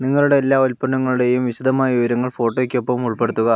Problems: none marked